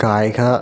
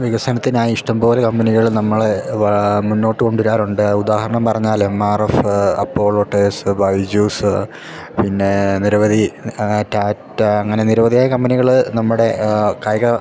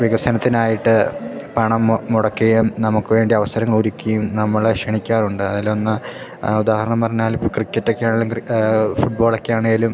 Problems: background sounds at intervals